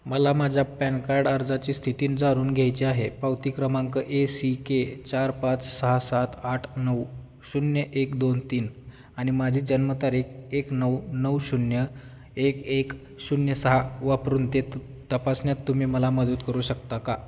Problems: none marked